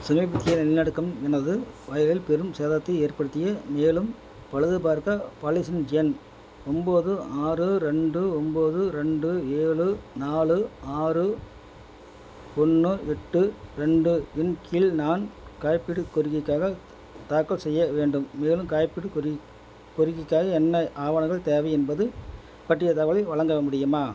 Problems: none marked